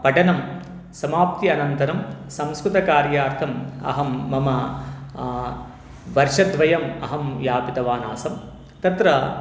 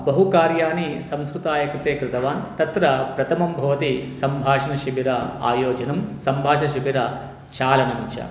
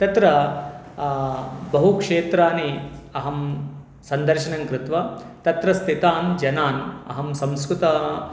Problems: none marked